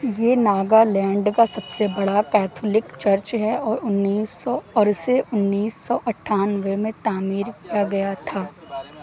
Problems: none marked